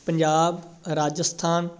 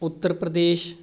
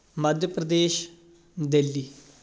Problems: constant background noise